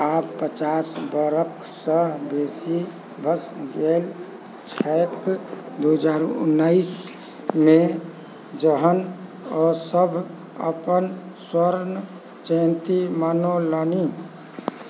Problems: none marked